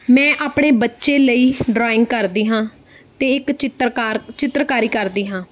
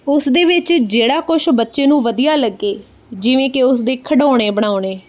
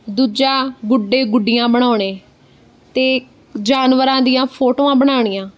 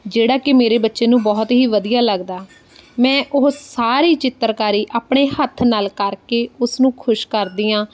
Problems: background sounds at intervals